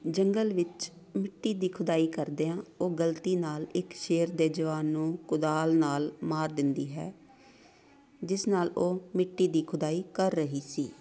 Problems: continuous background conversations